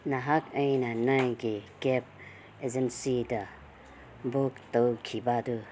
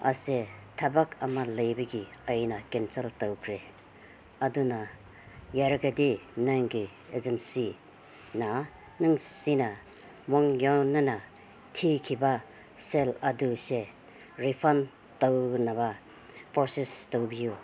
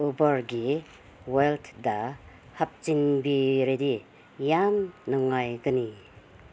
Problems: background sounds at intervals